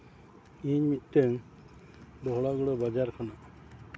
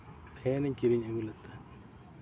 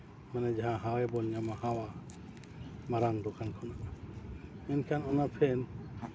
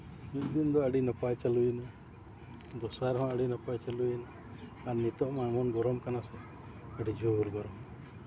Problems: constant background noise, continuous background conversations